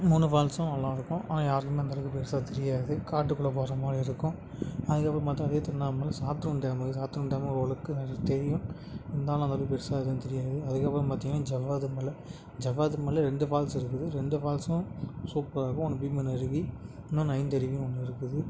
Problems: background sounds at intervals, background conversations at intervals